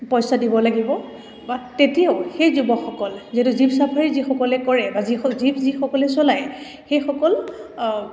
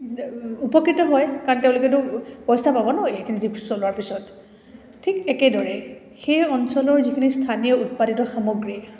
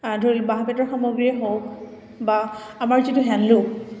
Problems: none marked